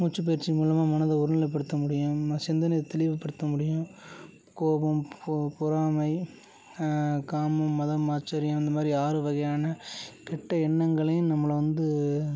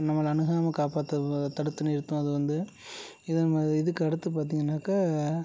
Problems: constant background noise, low volume